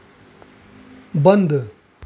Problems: constant background noise